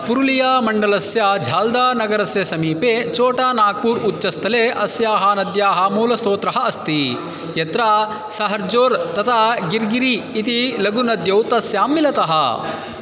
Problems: constant background noise